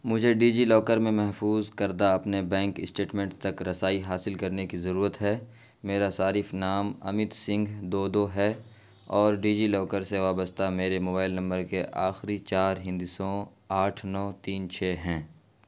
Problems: constant background noise